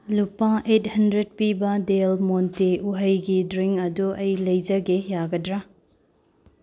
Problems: background sounds at intervals